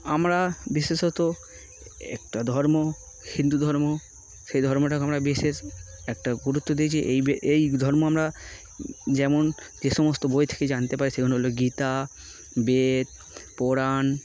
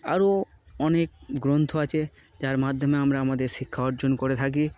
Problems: constant background noise